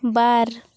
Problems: none marked